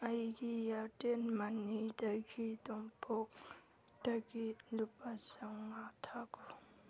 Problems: background sounds at intervals